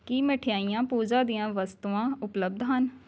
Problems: background sounds at intervals